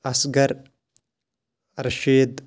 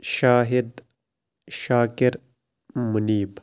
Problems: background sounds at intervals